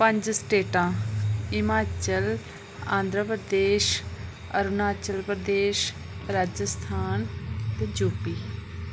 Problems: constant background noise